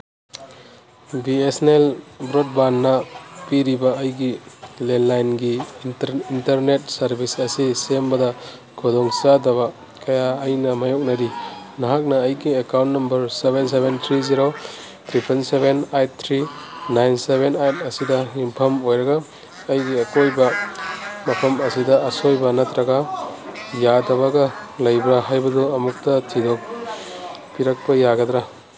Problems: background sounds at intervals, background conversations at intervals